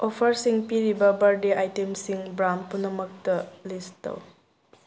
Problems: none marked